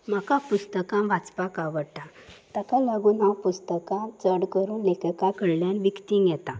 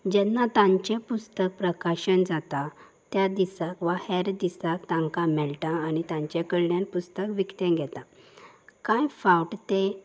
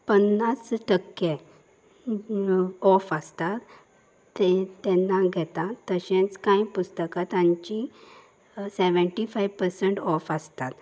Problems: constant background noise